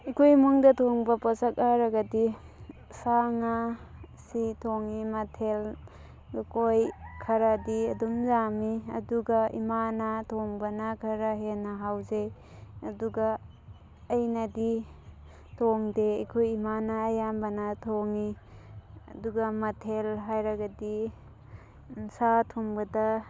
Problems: constant background noise